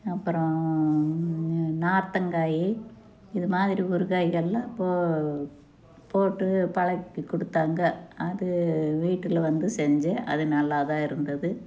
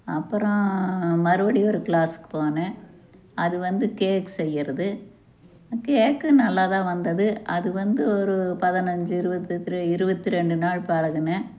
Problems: none marked